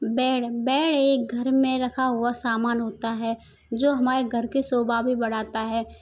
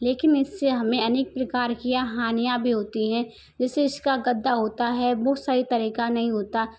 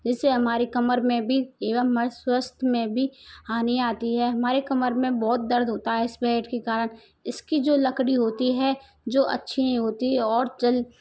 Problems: none marked